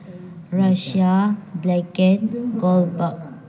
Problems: background sounds at intervals, background conversations at intervals